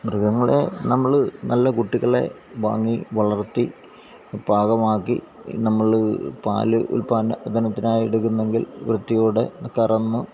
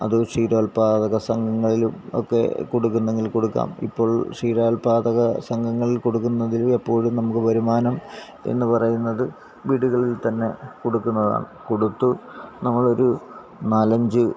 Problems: constant background noise